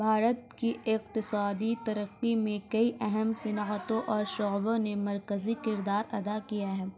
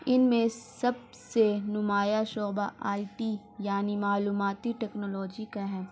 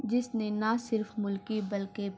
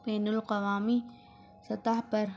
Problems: constant background noise, low volume